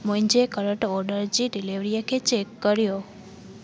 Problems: constant background noise